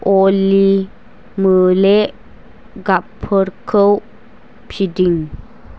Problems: constant background noise